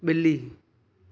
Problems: none marked